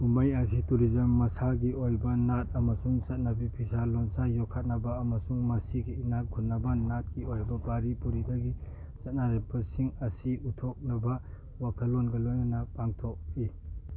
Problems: none marked